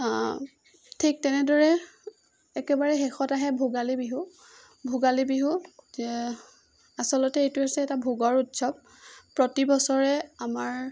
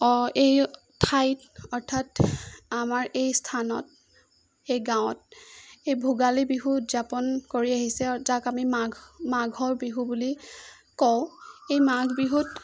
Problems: none marked